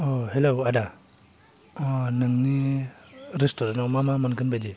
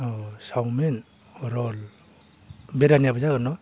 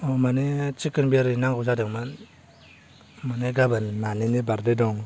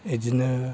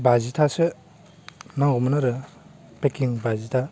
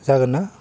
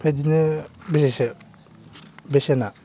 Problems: constant background noise